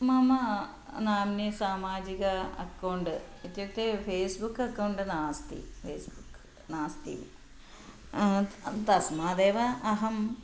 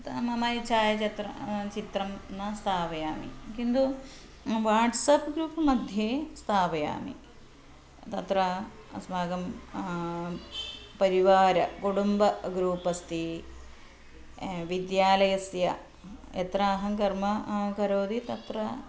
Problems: constant background noise